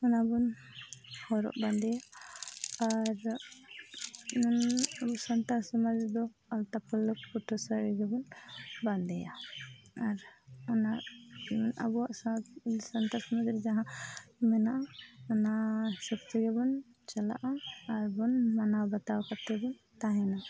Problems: constant background noise, low volume